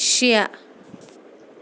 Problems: constant background noise